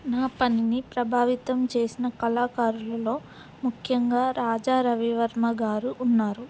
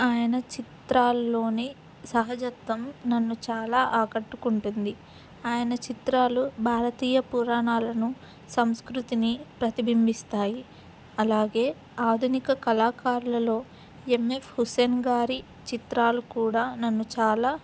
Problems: background sounds at intervals